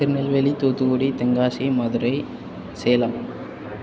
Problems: constant background noise